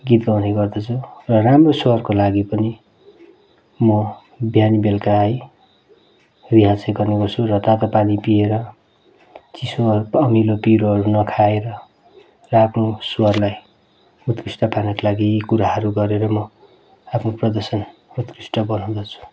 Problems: background sounds at intervals